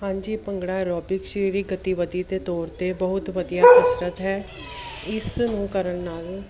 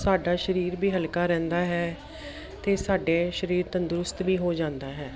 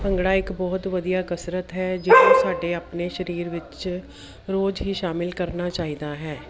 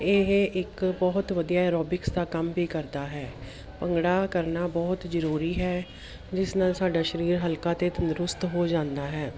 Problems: background sounds at intervals